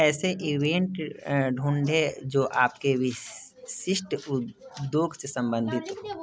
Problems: background sounds at intervals, background conversations at intervals